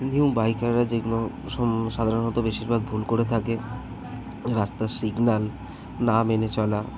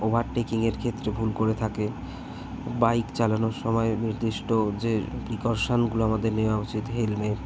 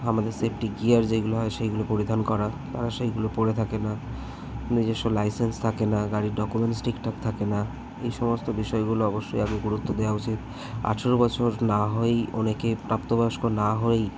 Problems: constant background noise, continuous background conversations